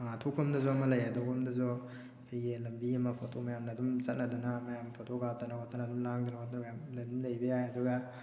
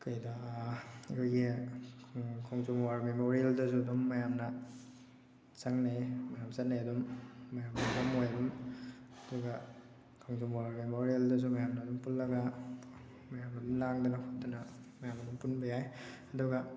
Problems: background sounds at intervals